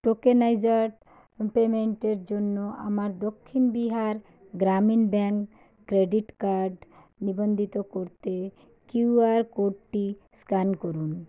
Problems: none marked